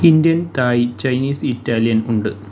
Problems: background sounds at intervals